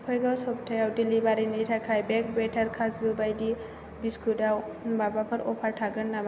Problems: none marked